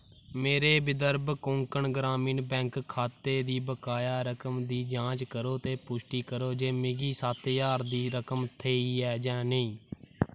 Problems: none marked